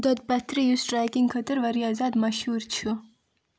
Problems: low volume